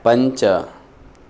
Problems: constant background noise